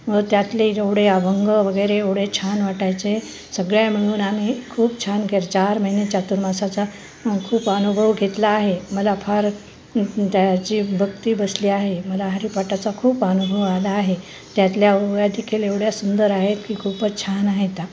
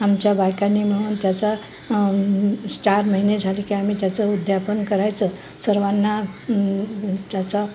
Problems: none marked